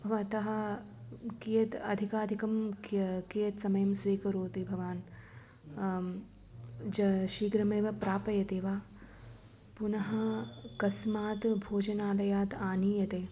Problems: background sounds at intervals